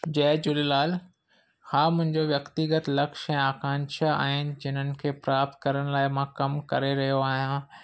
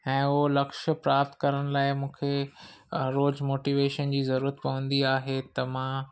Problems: none marked